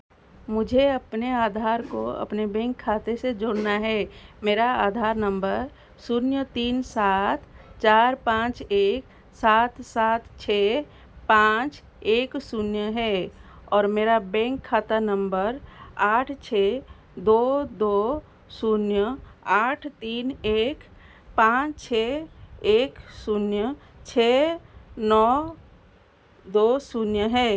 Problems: none marked